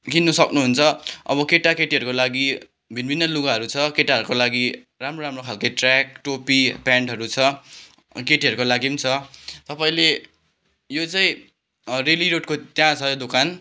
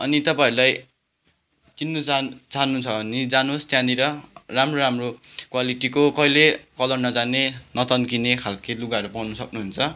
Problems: background sounds at intervals